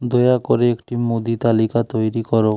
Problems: none marked